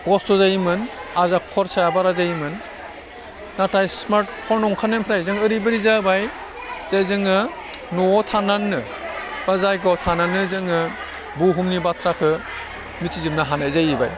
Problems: low volume